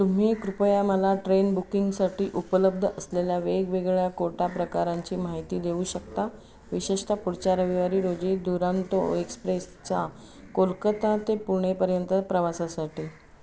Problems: constant background noise, continuous background conversations